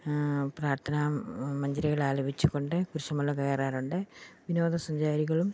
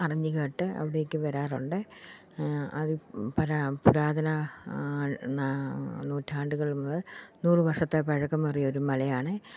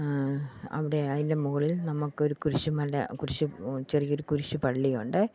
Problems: none marked